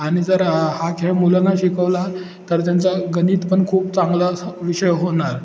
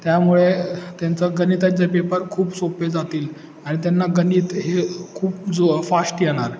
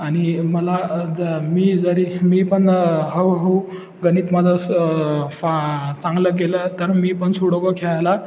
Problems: constant background noise, background conversations at intervals